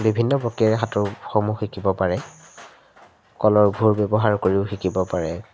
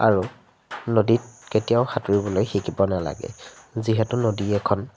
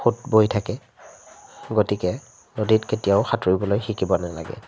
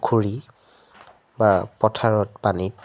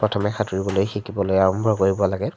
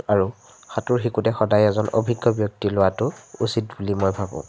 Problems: none marked